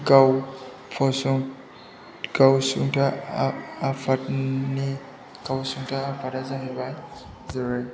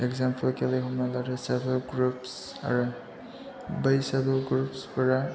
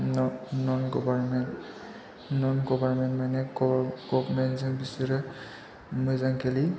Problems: low volume